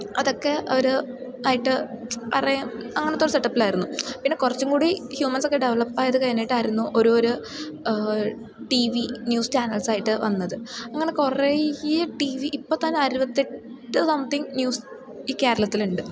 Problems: low volume